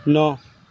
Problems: constant background noise